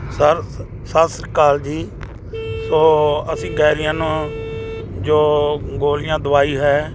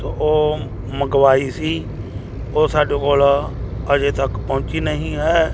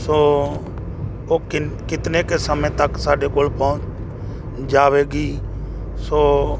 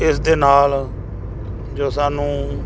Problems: background conversations at intervals